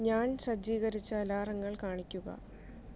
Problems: low volume